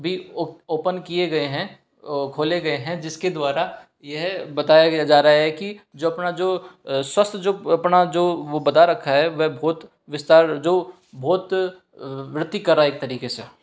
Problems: background sounds at intervals